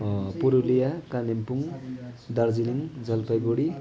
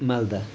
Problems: continuous background conversations